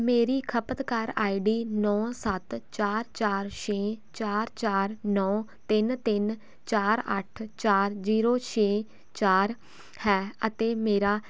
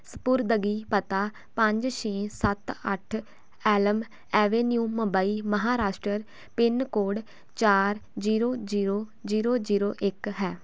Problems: none marked